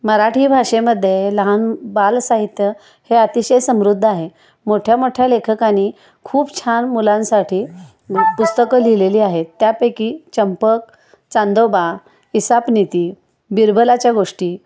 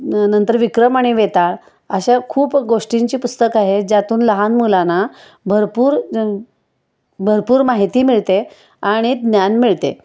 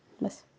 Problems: constant background noise, background conversations at intervals